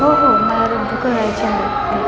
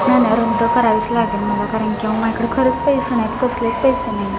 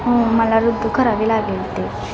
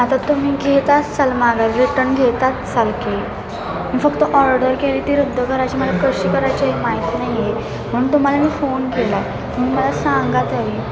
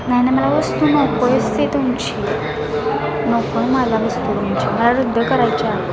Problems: constant background noise, continuous background conversations